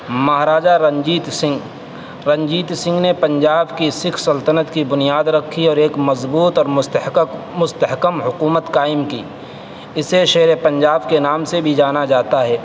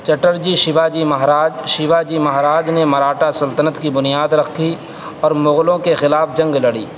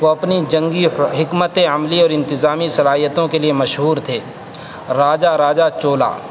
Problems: constant background noise, background conversations at intervals